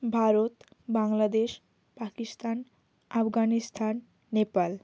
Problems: constant background noise